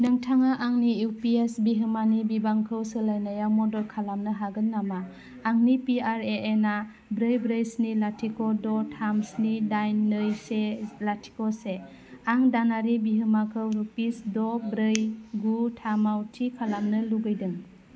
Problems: none marked